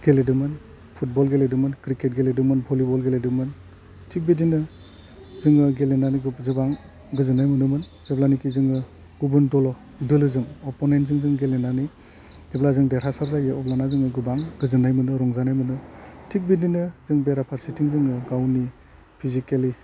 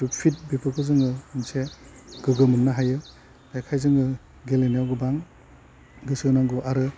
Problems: low volume